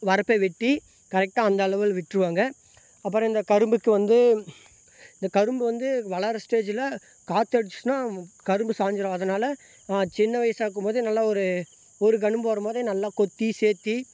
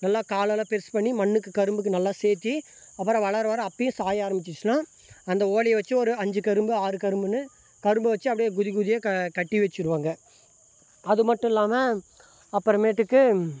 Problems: background sounds at intervals